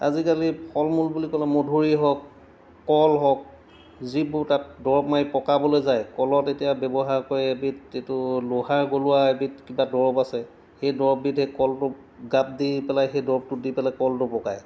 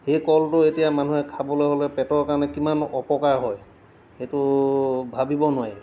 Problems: background sounds at intervals